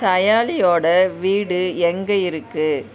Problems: none marked